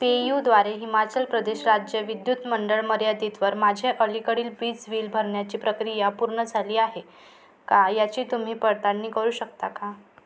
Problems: none marked